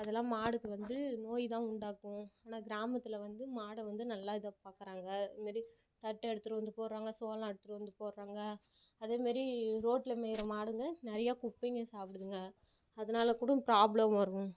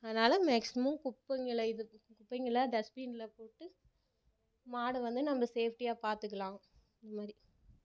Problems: none marked